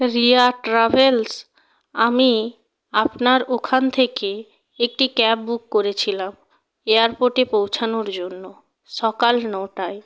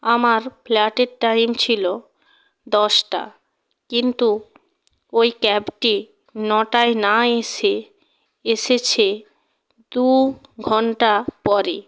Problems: constant background noise